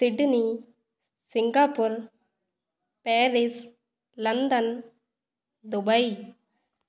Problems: none marked